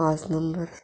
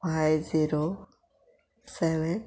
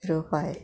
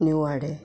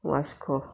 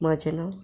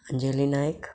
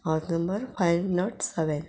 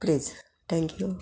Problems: background sounds at intervals